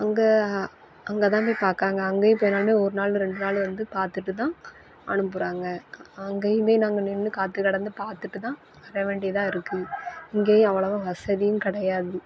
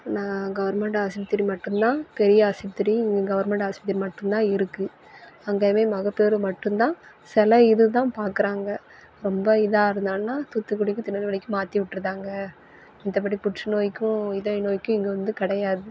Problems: background sounds at intervals